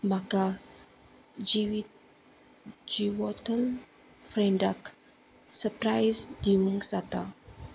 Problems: none marked